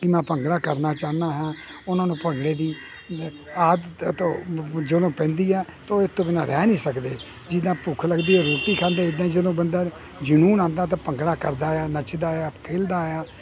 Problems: none marked